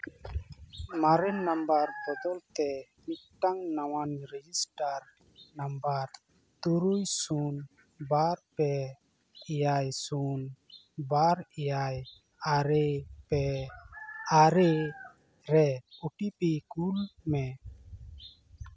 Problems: constant background noise